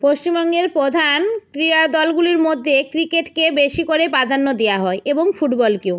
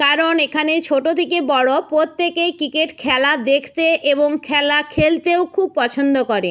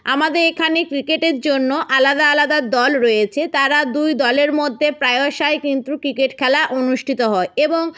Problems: none marked